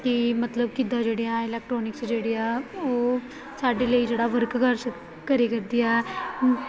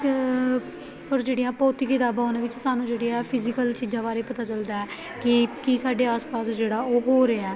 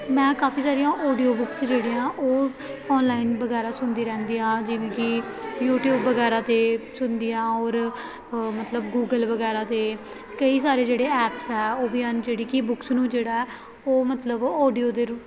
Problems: continuous background conversations